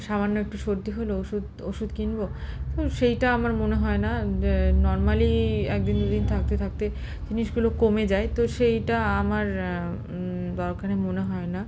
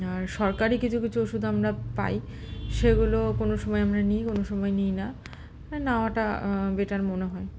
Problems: constant background noise, background conversations at intervals